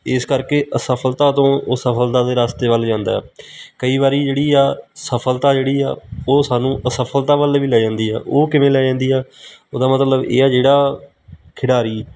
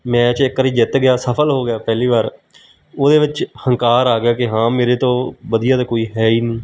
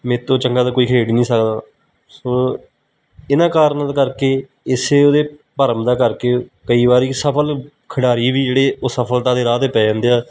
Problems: none marked